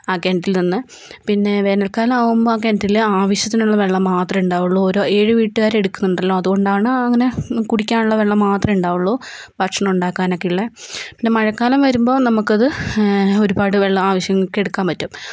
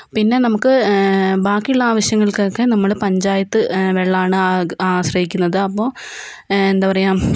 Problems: none marked